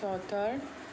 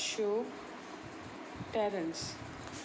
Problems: none marked